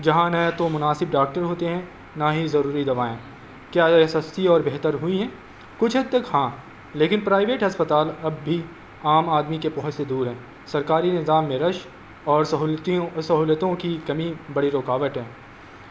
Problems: constant background noise